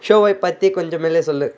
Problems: constant background noise